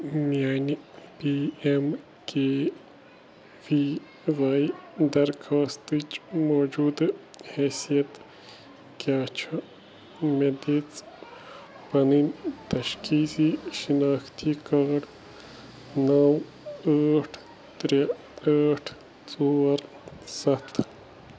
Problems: none marked